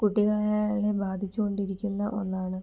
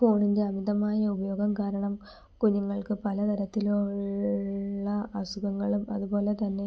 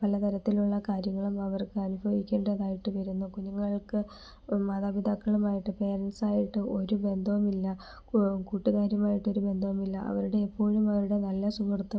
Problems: low volume